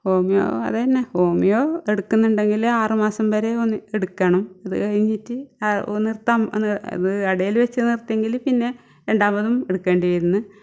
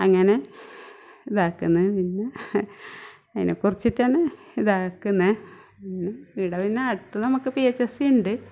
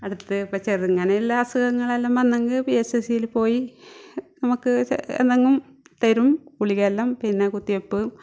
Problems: none marked